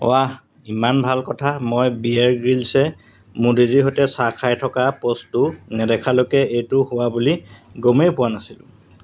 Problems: none marked